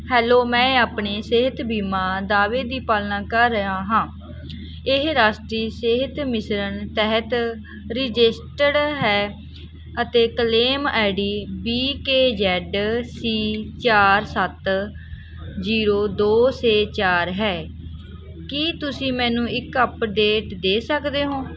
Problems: background sounds at intervals